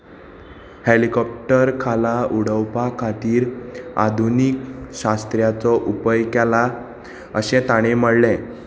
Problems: constant background noise